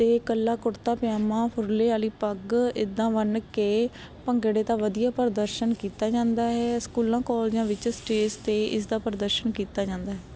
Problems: constant background noise